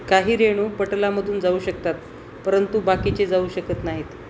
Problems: constant background noise